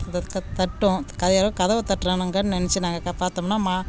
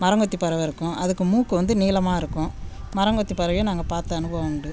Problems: none marked